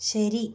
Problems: none marked